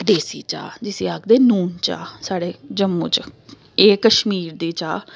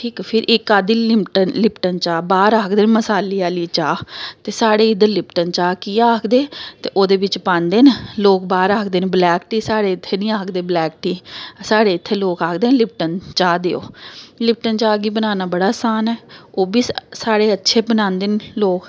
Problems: background sounds at intervals